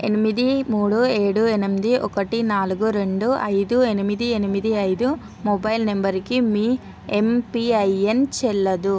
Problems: none marked